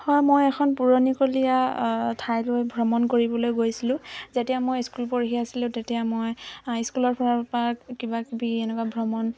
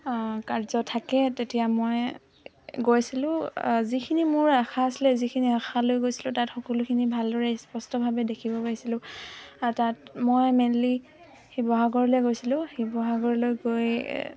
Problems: constant background noise